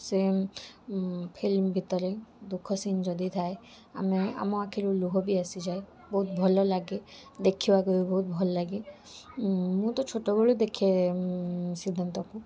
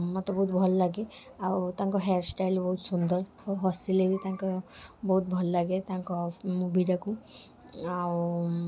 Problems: none marked